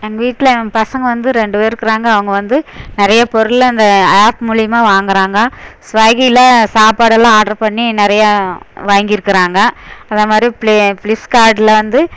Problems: none marked